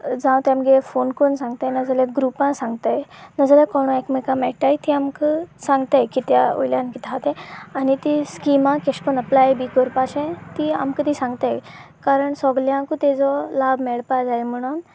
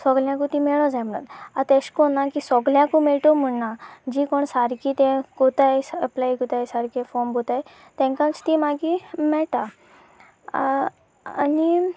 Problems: constant background noise